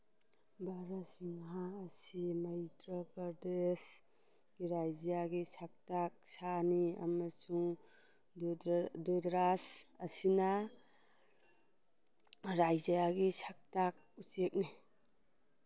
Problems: none marked